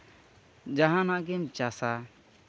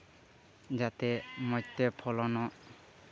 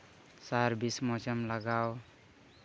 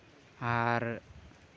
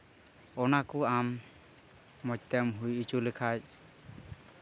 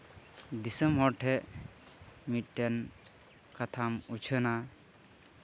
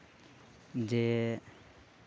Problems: constant background noise, background conversations at intervals